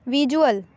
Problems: constant background noise